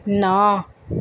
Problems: background sounds at intervals